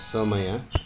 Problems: constant background noise